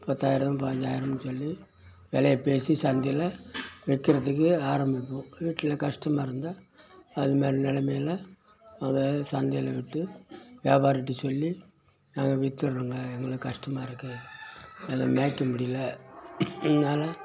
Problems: background sounds at intervals